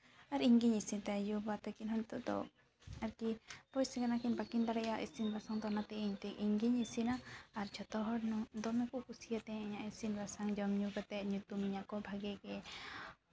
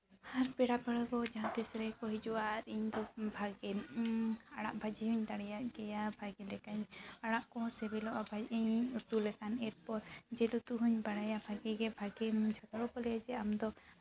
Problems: background sounds at intervals